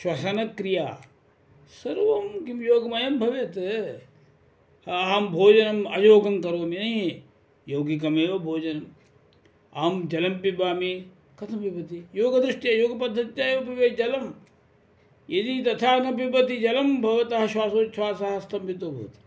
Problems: none marked